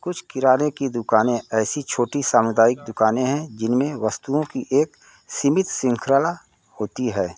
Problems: constant background noise